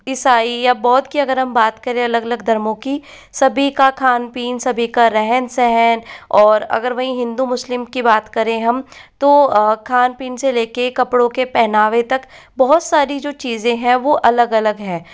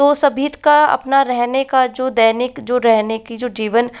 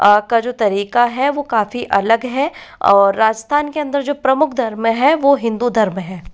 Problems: background sounds at intervals